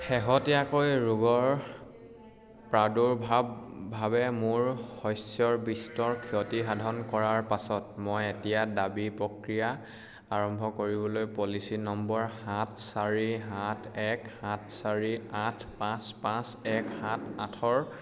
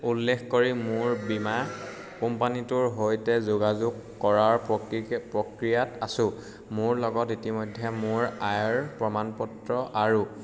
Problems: none marked